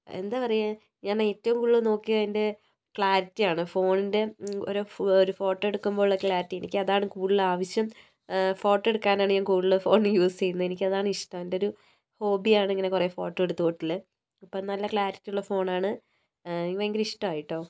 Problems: low volume